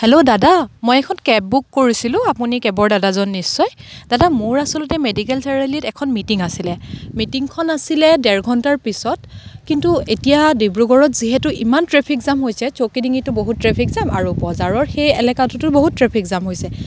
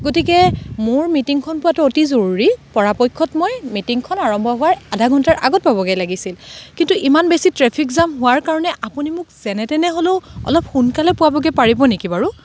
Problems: background sounds at intervals